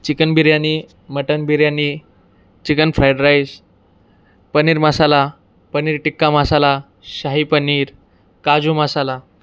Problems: none marked